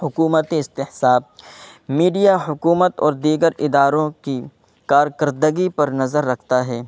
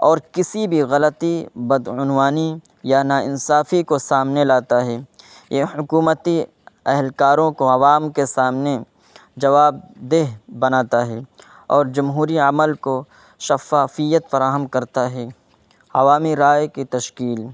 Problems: constant background noise